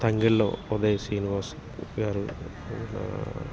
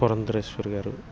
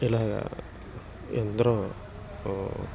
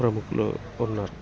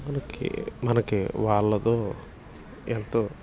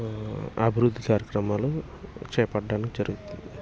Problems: constant background noise